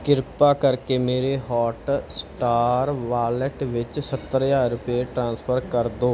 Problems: none marked